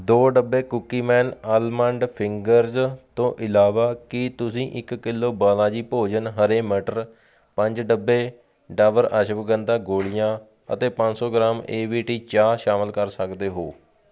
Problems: none marked